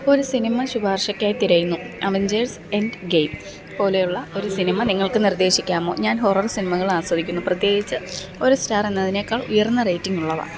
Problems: background sounds at intervals